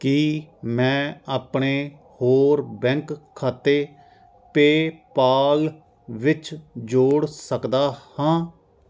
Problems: constant background noise